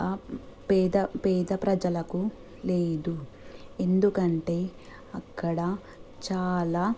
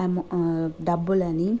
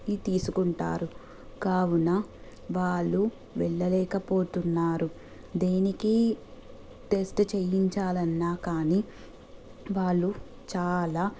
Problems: constant background noise